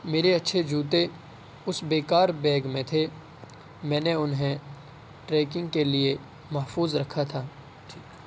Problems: constant background noise